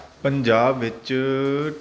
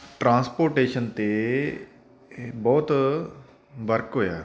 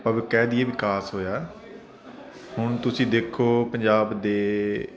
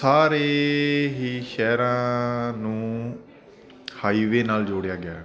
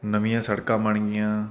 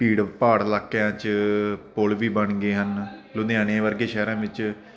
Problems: constant background noise, continuous background conversations